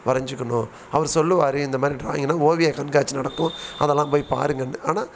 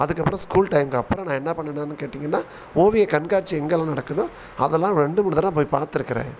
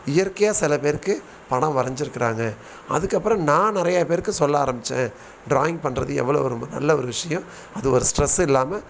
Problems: constant background noise